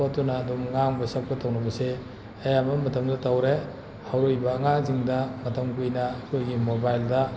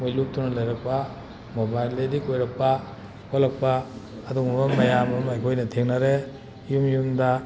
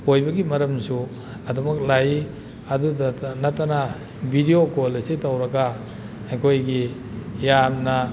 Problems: background sounds at intervals